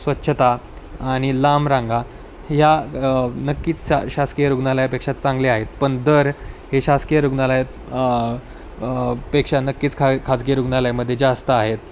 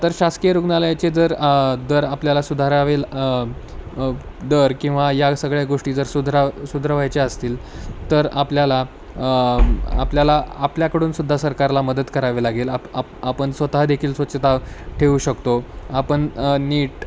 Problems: none marked